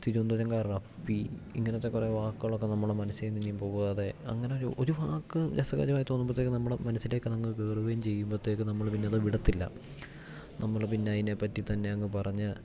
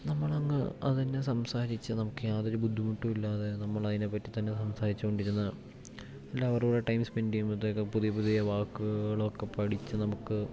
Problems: none marked